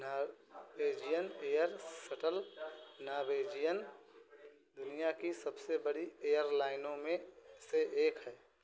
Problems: constant background noise